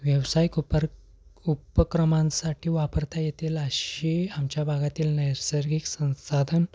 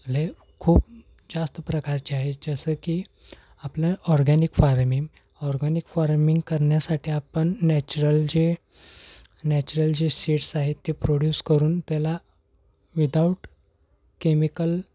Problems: none marked